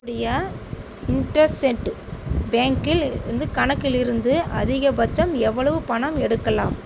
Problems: constant background noise